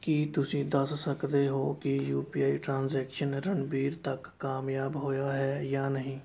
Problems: background sounds at intervals